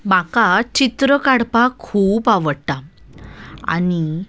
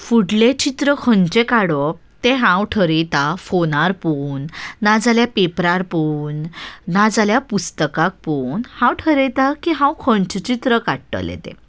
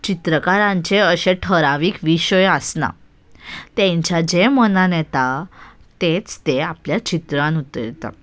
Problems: none marked